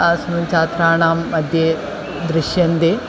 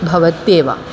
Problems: constant background noise